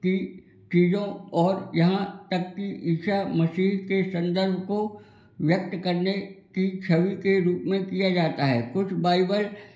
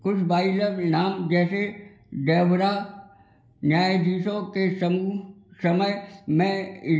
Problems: constant background noise